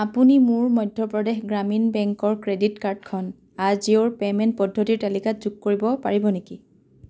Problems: background sounds at intervals